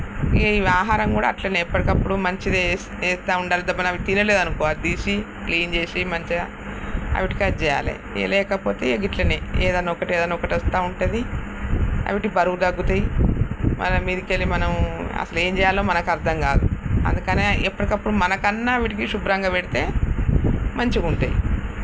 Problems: constant background noise